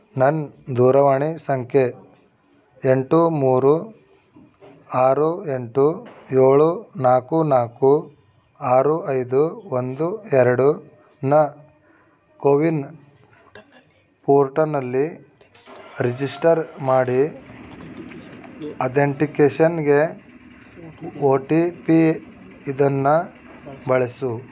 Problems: background conversations at intervals